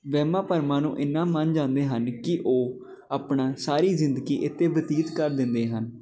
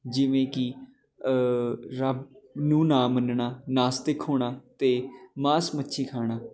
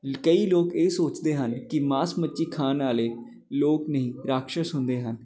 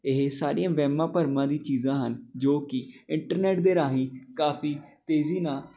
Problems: none marked